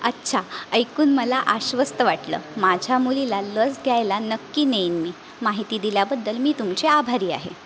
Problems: none marked